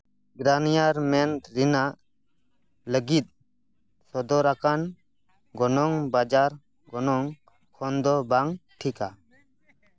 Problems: background sounds at intervals